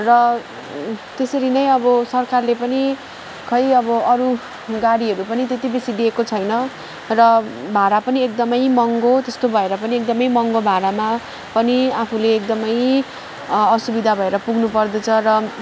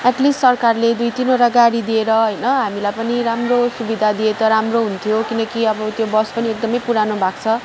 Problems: constant background noise, background conversations at intervals